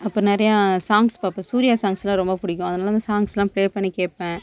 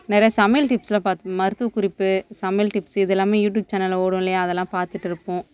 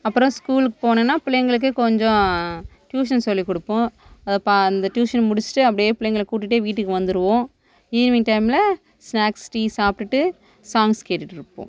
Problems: constant background noise